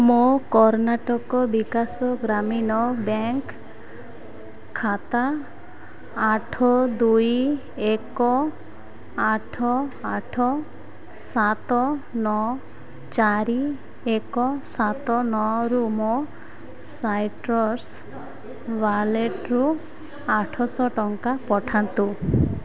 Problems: constant background noise